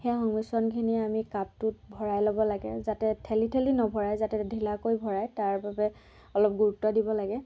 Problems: background sounds at intervals, background conversations at intervals